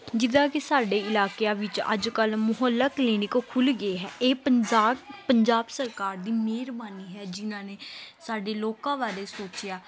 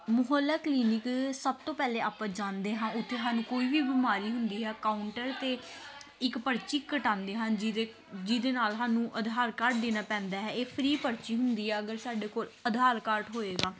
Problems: background sounds at intervals, continuous background conversations